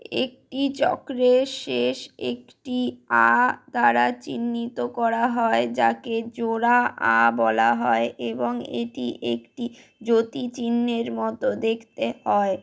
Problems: background sounds at intervals